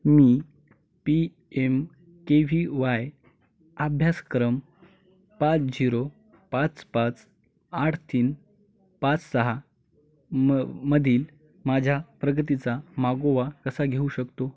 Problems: none marked